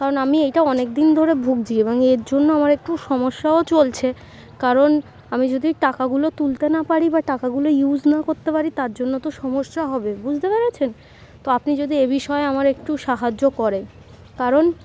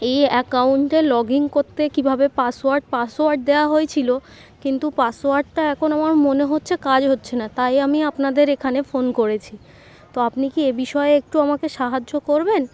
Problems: none marked